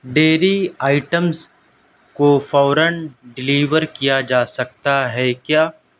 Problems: none marked